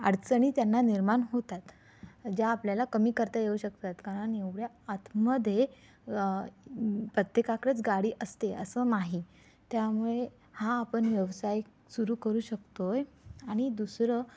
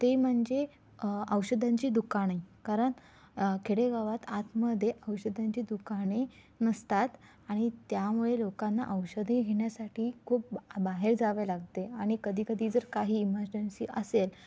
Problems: none marked